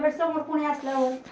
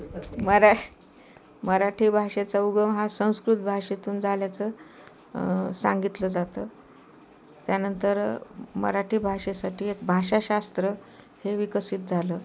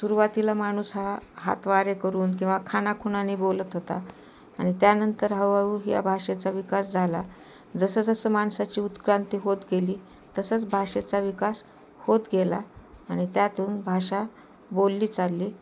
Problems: constant background noise, background conversations at intervals